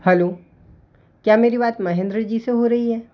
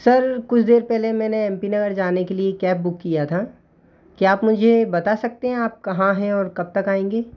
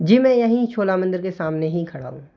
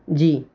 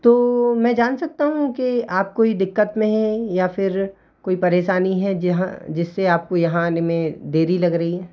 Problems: constant background noise